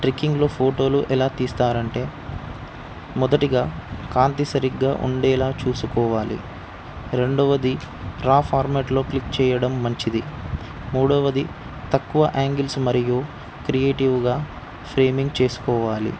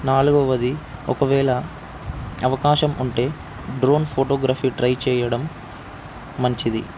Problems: constant background noise